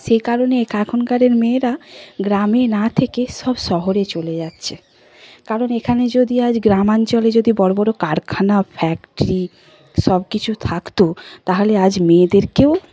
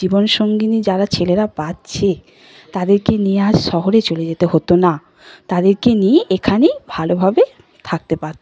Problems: none marked